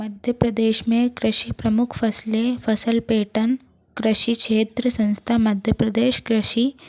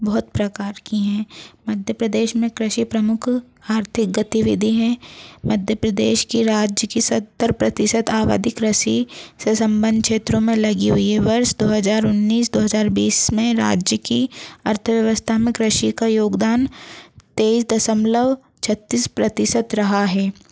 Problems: constant background noise